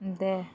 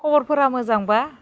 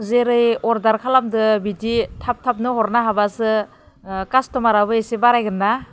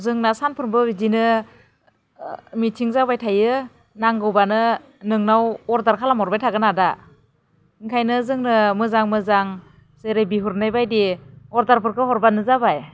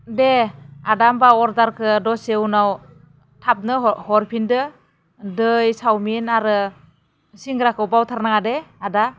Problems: none marked